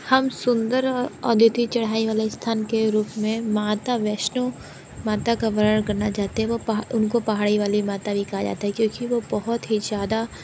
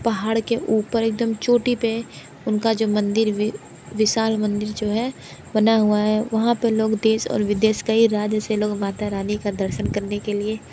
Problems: none marked